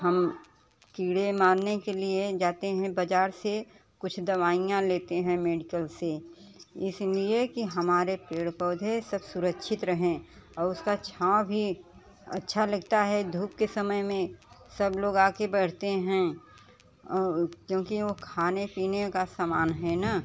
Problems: constant background noise, continuous background conversations